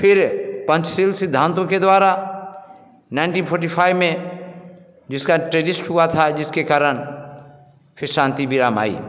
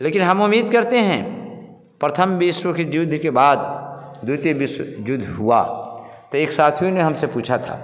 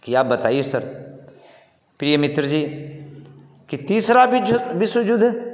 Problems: none marked